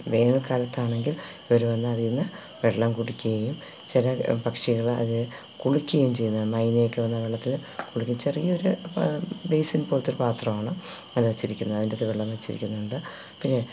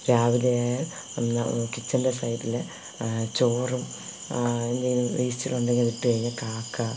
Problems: constant background noise, low volume